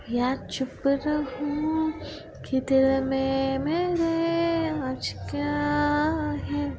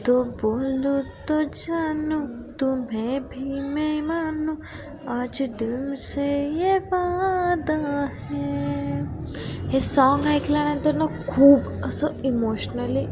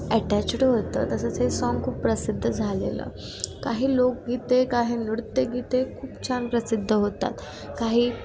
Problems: constant background noise, background conversations at intervals